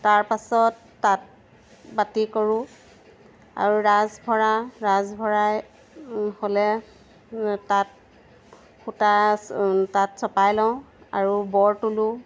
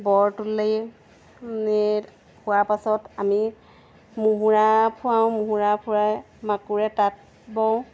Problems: none marked